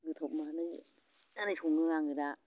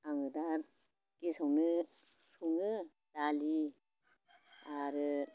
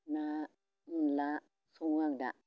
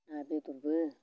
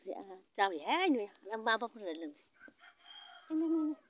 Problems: constant background noise